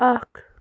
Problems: background sounds at intervals